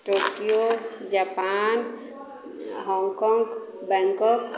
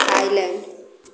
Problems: constant background noise